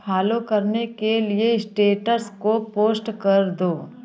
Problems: none marked